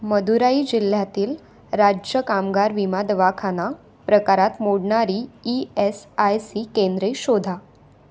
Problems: none marked